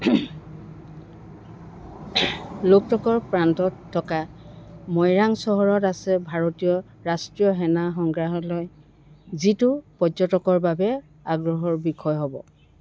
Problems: constant background noise